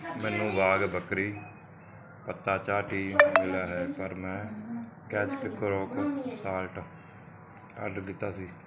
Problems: continuous background conversations